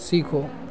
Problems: none marked